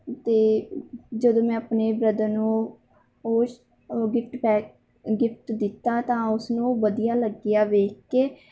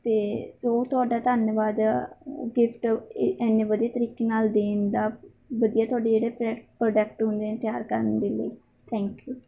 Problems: none marked